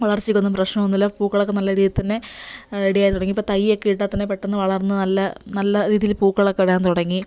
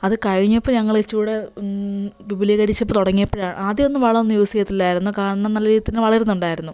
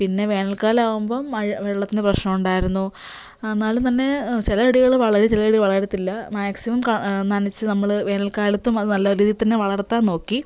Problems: constant background noise